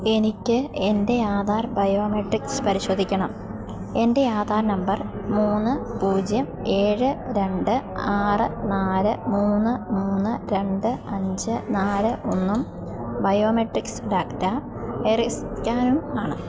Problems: background sounds at intervals